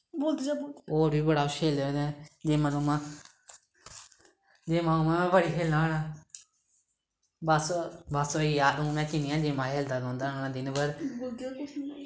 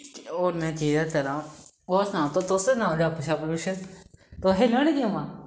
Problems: background sounds at intervals